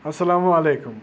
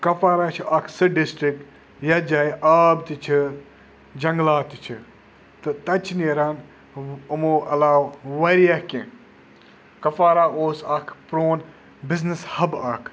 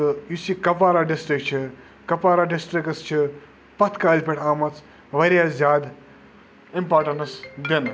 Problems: background sounds at intervals